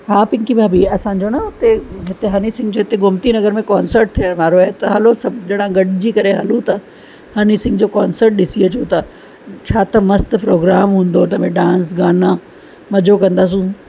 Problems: constant background noise